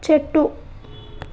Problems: constant background noise